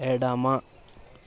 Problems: none marked